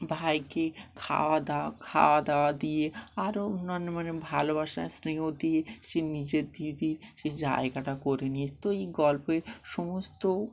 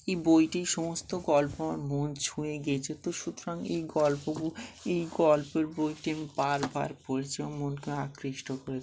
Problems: none marked